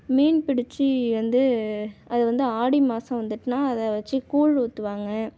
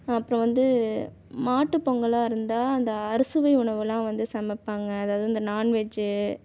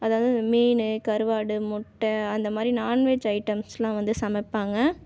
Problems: none marked